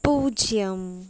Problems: none marked